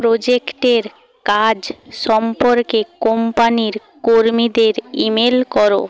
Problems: constant background noise